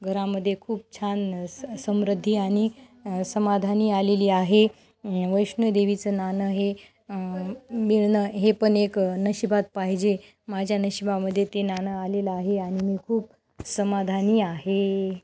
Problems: background sounds at intervals